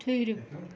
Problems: constant background noise, low volume